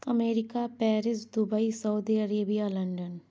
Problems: constant background noise